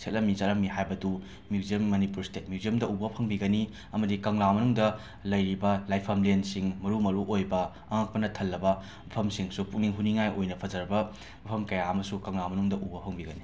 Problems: background sounds at intervals